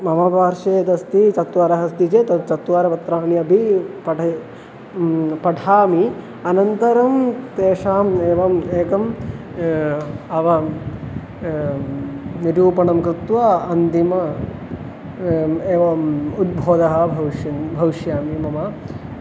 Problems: constant background noise